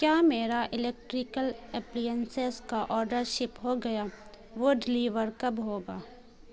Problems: constant background noise